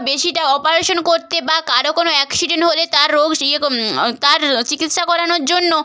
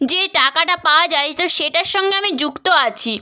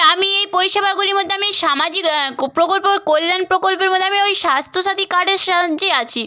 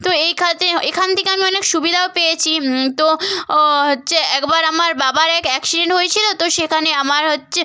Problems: none marked